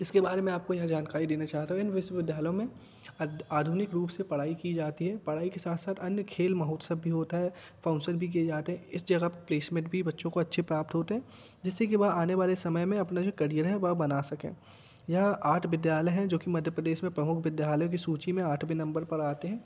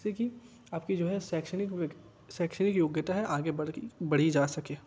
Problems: background sounds at intervals